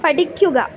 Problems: none marked